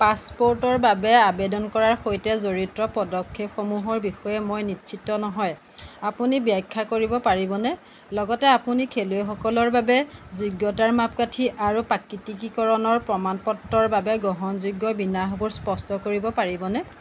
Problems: none marked